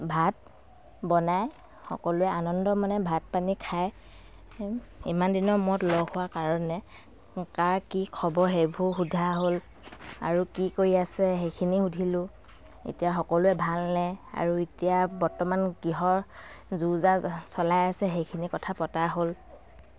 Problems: none marked